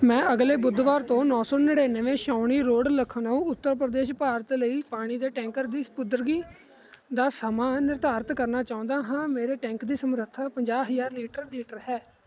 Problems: constant background noise